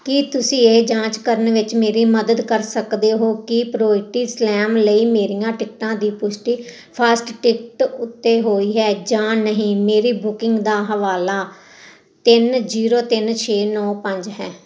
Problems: none marked